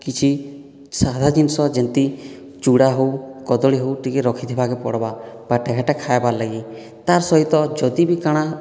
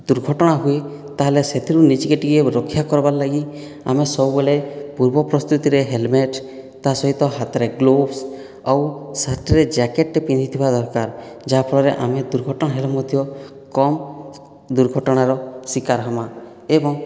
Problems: none marked